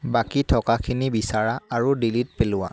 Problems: constant background noise